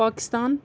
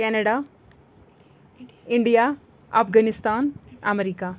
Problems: background sounds at intervals, background conversations at intervals